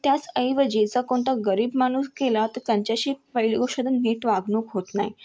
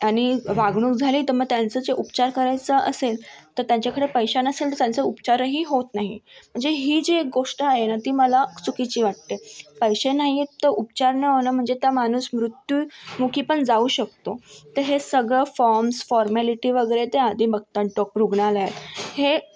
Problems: none marked